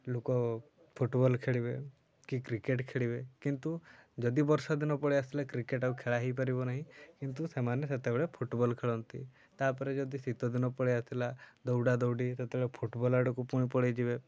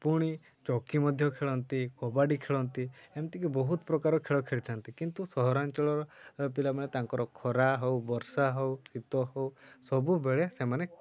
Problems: low volume